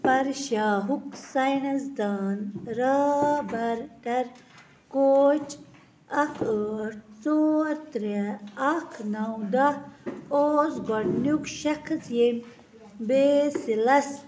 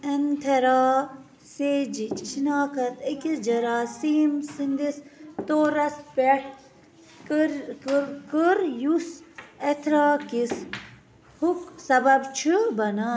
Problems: none marked